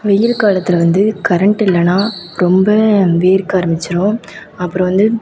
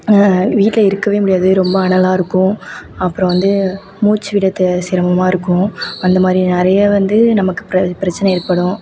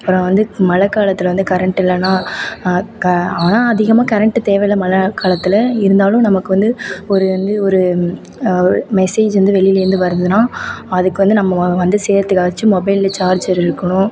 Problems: constant background noise